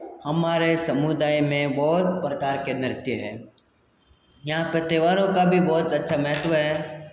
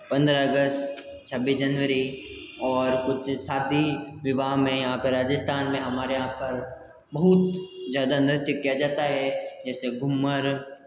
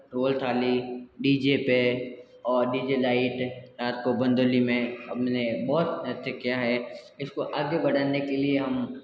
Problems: constant background noise